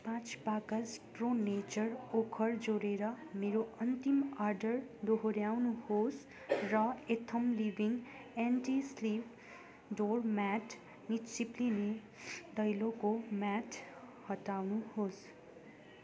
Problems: constant background noise, background conversations at intervals